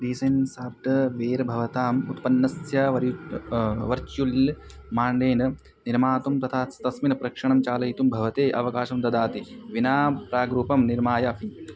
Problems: constant background noise, background conversations at intervals